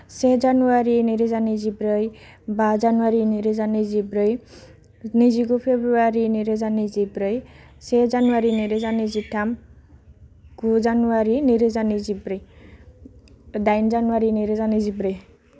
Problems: none marked